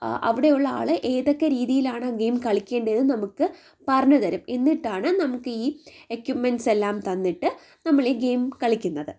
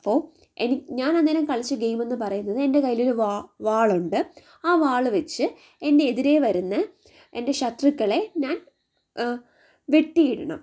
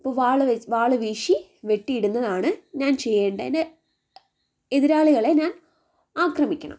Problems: none marked